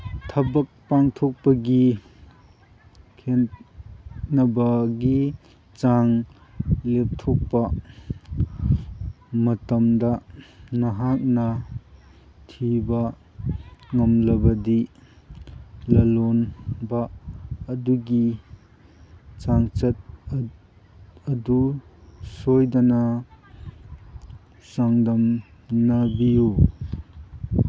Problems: background sounds at intervals